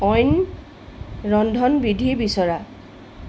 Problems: constant background noise